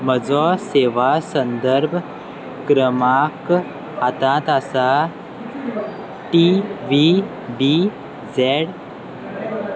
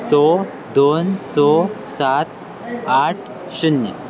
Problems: constant background noise